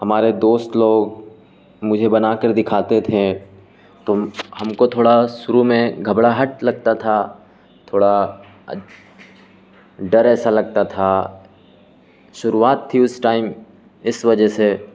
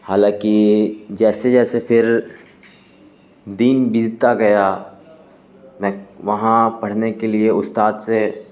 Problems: constant background noise